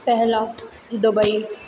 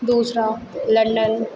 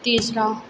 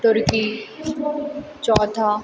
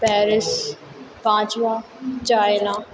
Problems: none marked